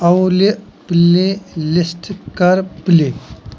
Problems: none marked